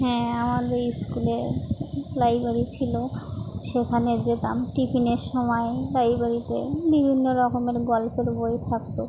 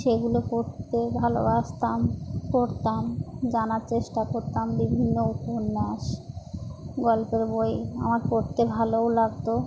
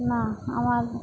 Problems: none marked